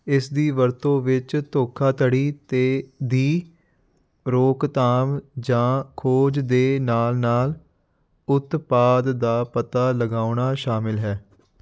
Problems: none marked